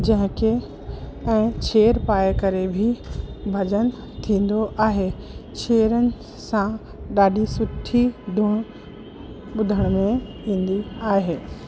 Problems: constant background noise